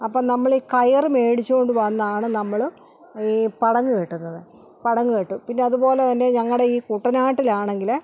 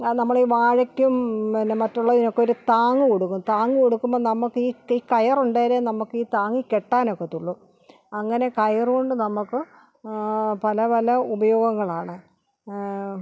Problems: none marked